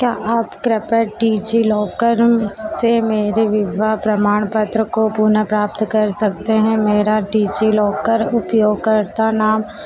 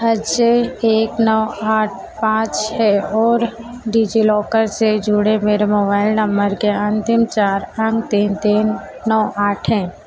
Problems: constant background noise